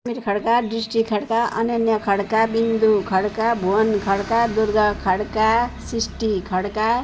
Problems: background sounds at intervals